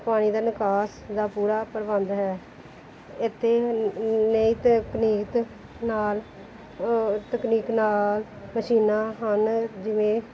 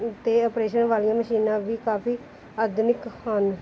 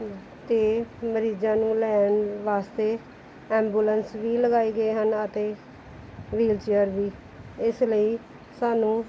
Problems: background sounds at intervals